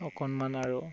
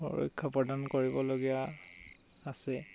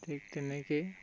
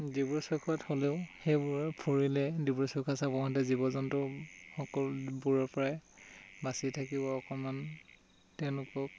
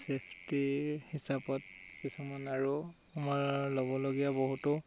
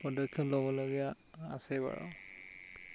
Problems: background sounds at intervals